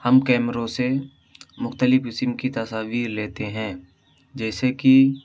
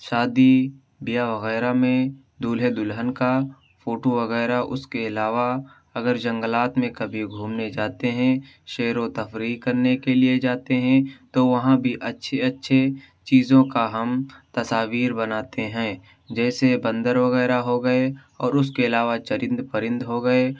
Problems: none marked